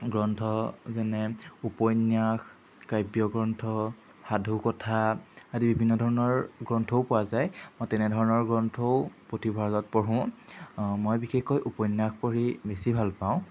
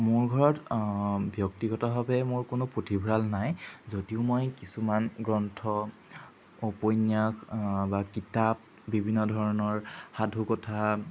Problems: background sounds at intervals